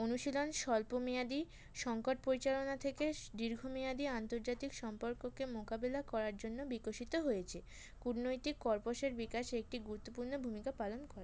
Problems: background sounds at intervals